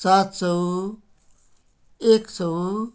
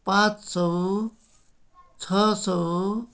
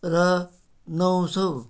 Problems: background sounds at intervals